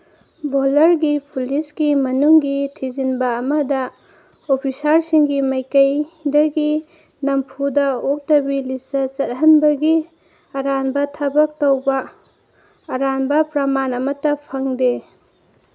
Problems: none marked